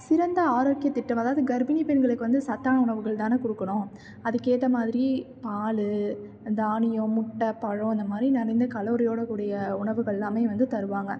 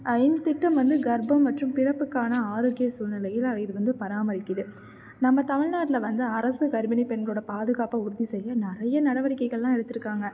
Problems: none marked